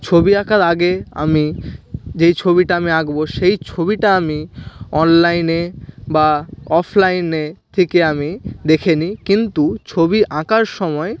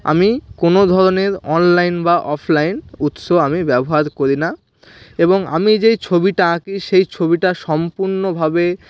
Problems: background sounds at intervals